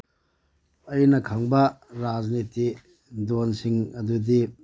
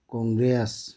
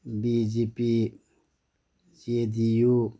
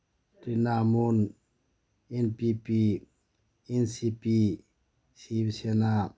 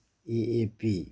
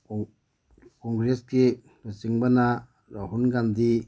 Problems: background sounds at intervals